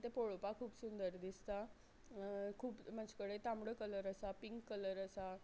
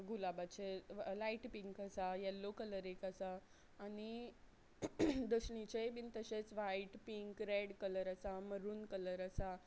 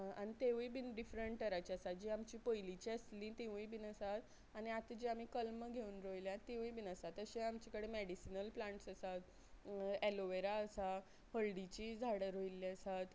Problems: none marked